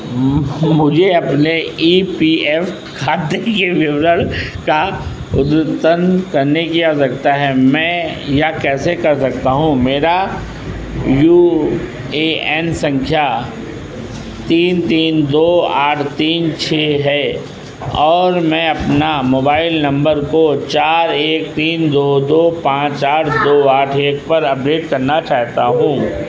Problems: constant background noise